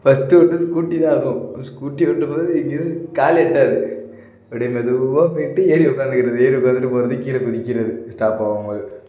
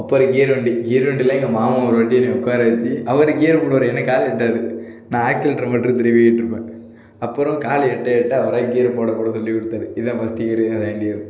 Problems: none marked